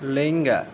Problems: constant background noise